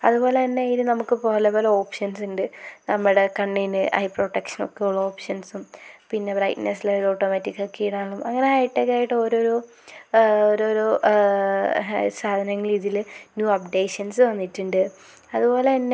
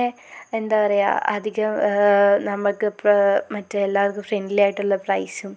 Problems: constant background noise